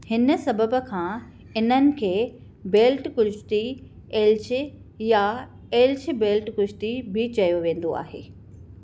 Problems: none marked